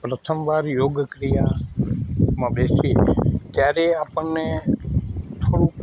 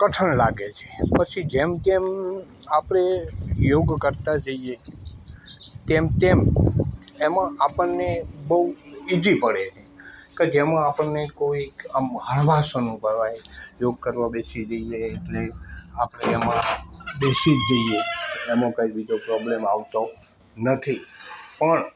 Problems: background sounds at intervals